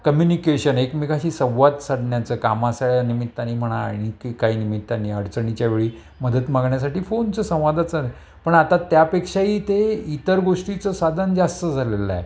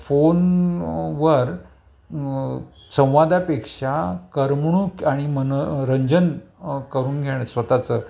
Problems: background sounds at intervals, background conversations at intervals